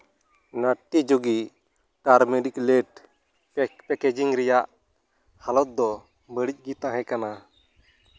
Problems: background sounds at intervals